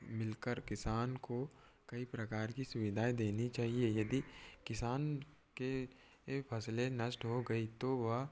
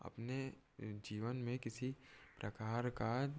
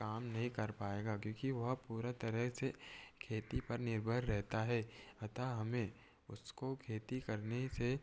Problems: none marked